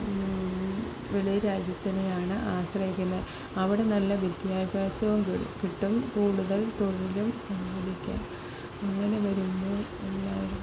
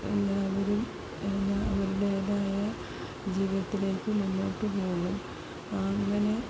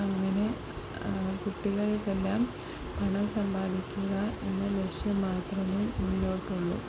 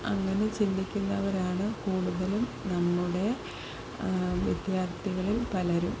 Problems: constant background noise